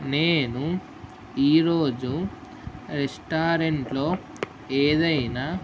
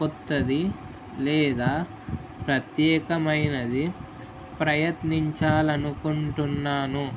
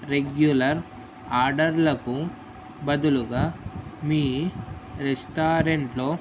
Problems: constant background noise